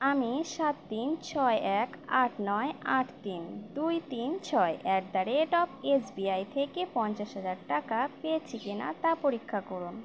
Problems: background sounds at intervals